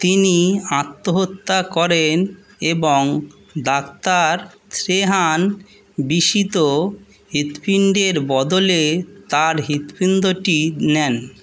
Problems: none marked